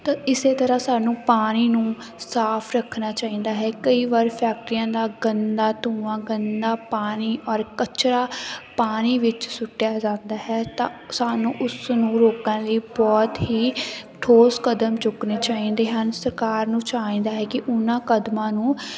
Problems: none marked